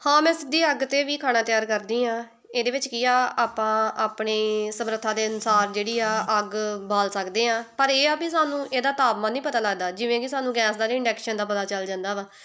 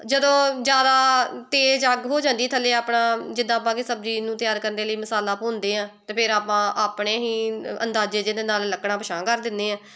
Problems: background conversations at intervals